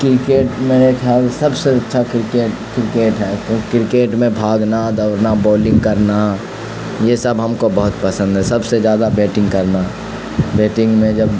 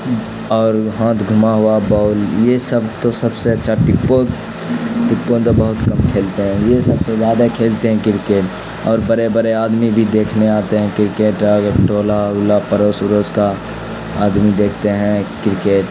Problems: constant background noise